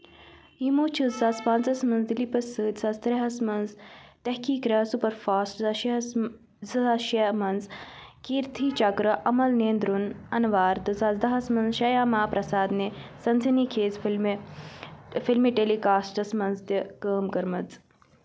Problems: constant background noise